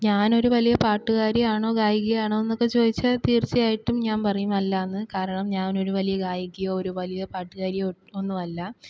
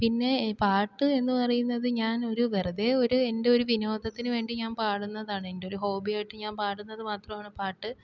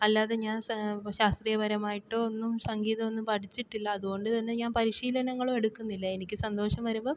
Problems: low volume